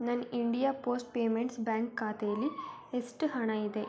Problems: constant background noise